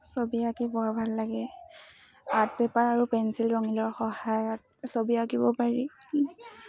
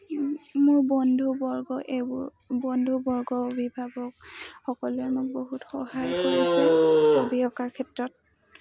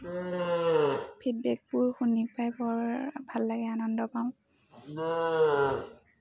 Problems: constant background noise, background conversations at intervals